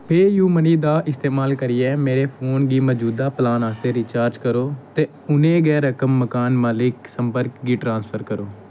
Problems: none marked